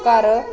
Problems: none marked